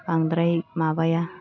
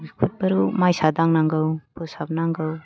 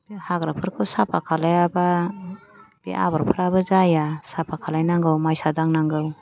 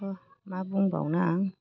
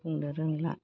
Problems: low volume